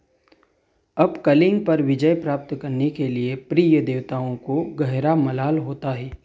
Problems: background sounds at intervals